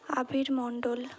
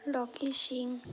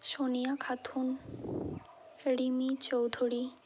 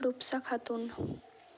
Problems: constant background noise, background conversations at intervals